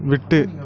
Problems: background conversations at intervals